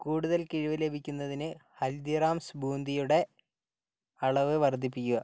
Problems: low volume